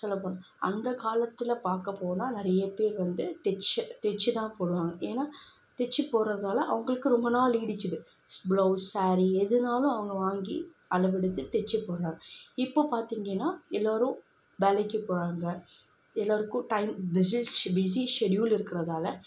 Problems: background sounds at intervals